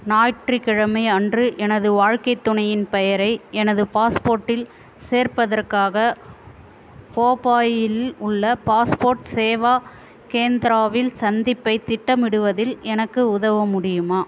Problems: constant background noise